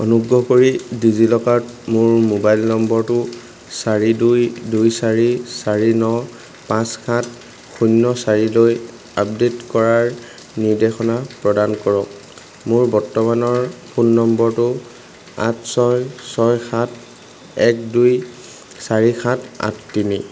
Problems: none marked